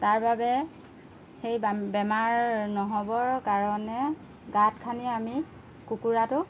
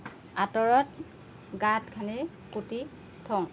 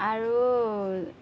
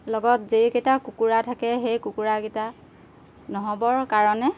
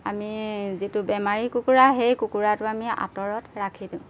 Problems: background sounds at intervals